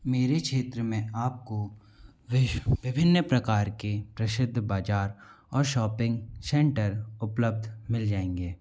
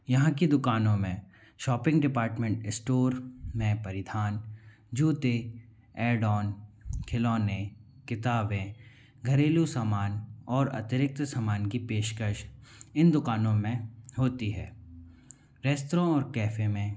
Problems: low volume